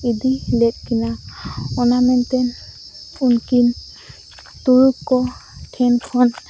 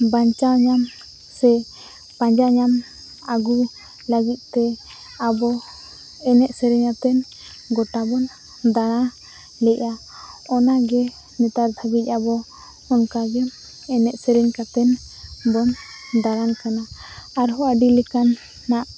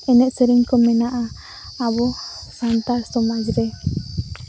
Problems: none marked